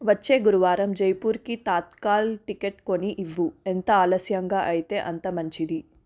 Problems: constant background noise